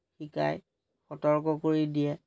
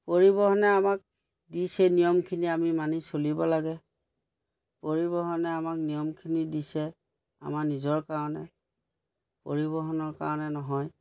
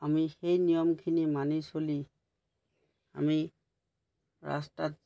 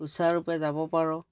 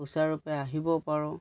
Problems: background sounds at intervals